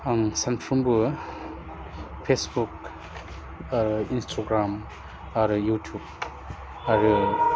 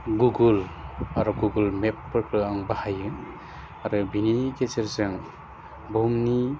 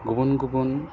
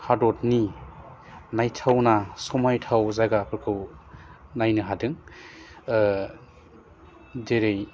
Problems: low volume